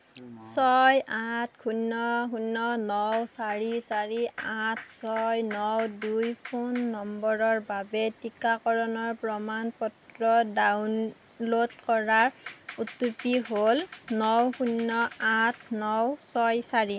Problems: background sounds at intervals